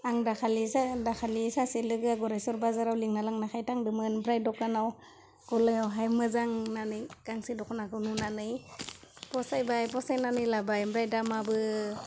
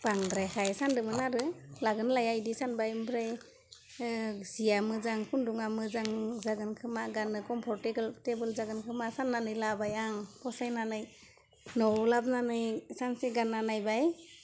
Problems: none marked